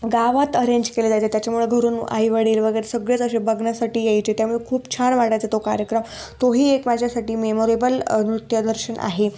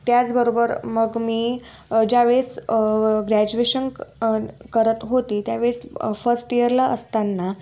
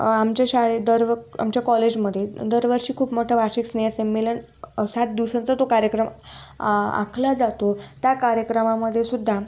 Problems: background sounds at intervals